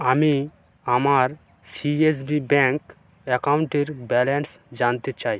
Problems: none marked